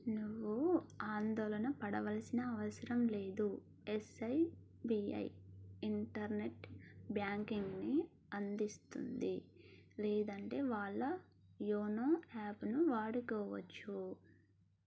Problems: low volume